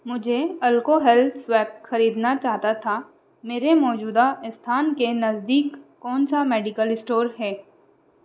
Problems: none marked